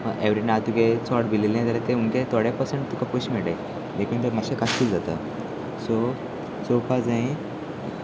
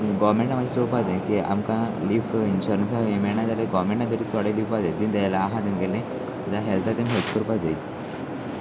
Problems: constant background noise, continuous background conversations